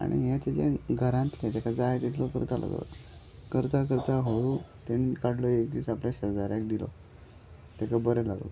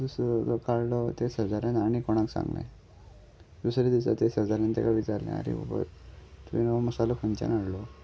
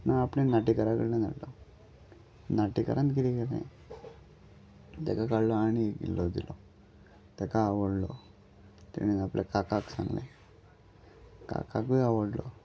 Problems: background sounds at intervals